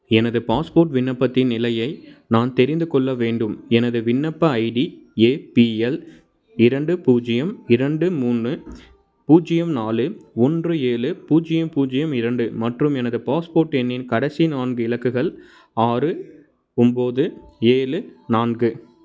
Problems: background sounds at intervals